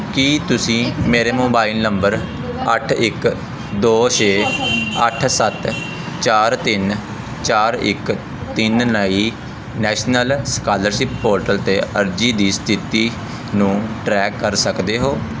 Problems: none marked